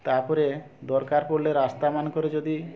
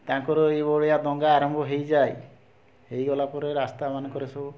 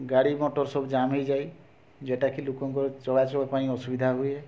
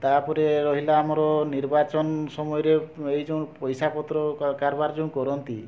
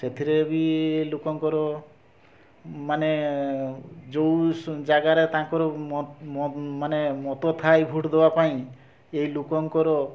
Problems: constant background noise, continuous background conversations